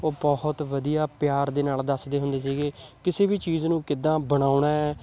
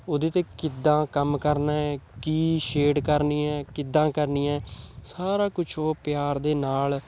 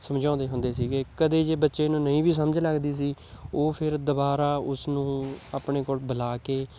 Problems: none marked